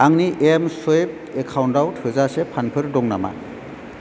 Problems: none marked